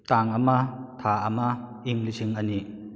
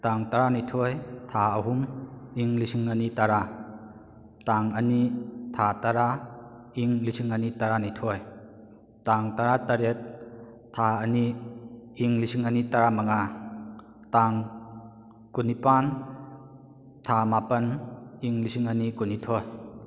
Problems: none marked